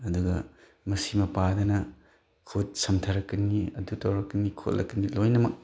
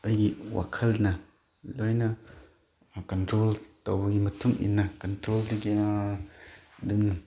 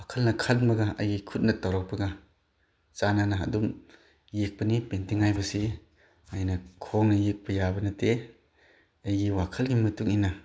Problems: background conversations at intervals